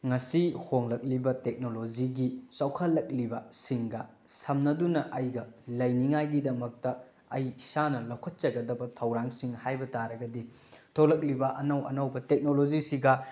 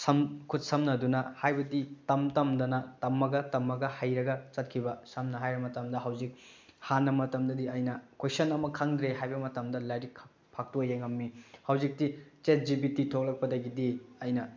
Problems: none marked